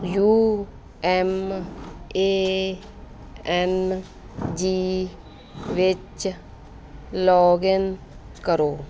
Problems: background sounds at intervals